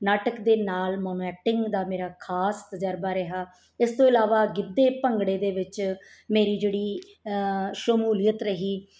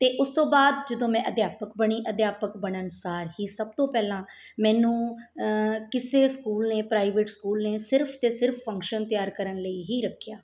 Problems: background sounds at intervals